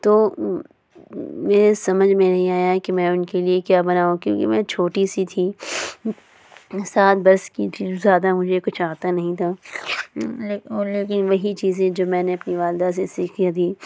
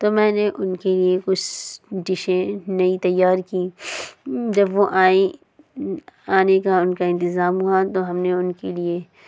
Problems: constant background noise